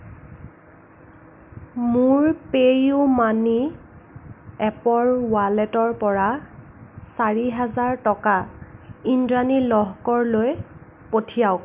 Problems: none marked